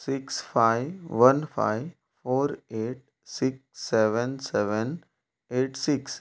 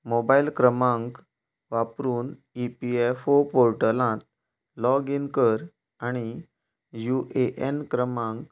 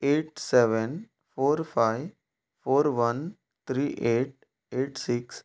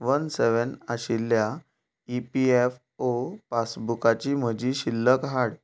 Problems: background sounds at intervals